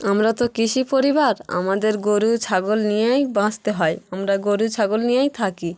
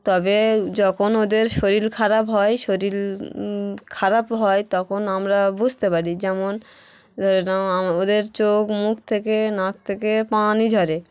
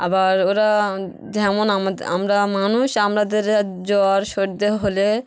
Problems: none marked